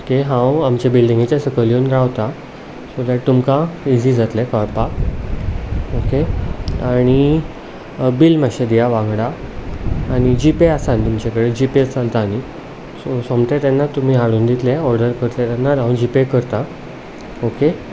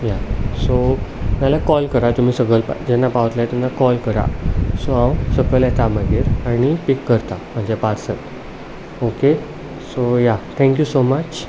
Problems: constant background noise, background conversations at intervals